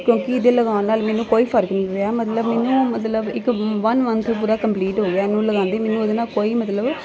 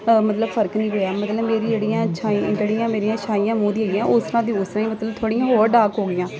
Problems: constant background noise, continuous background conversations